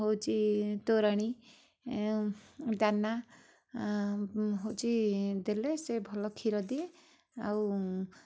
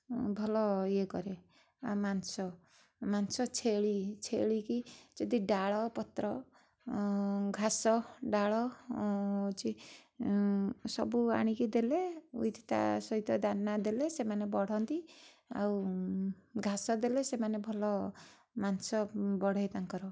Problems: none marked